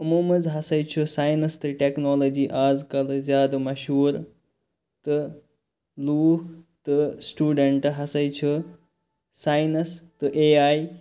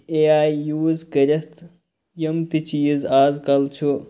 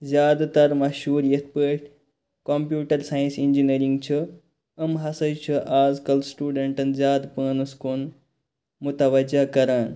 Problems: none marked